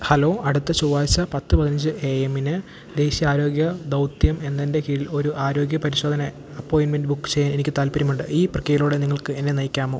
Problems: none marked